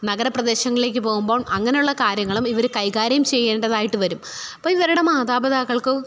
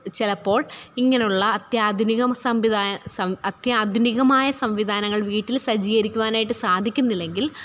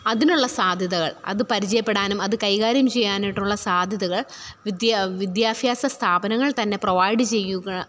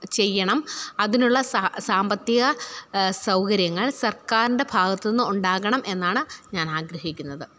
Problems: none marked